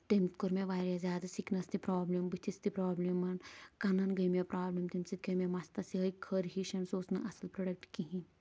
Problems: none marked